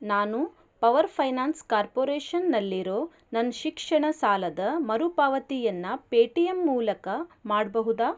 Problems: none marked